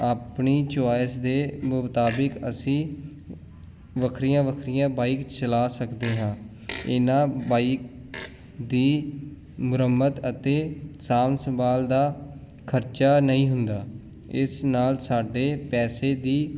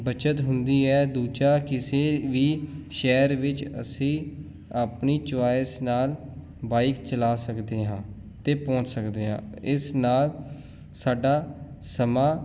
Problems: none marked